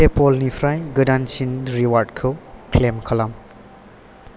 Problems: none marked